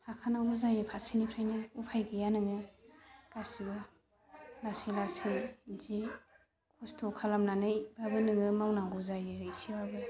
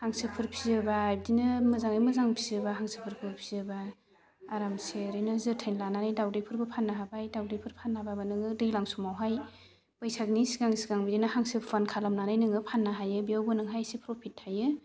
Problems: constant background noise